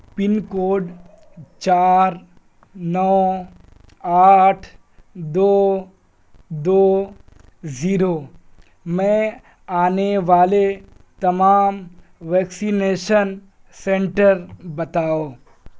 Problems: background sounds at intervals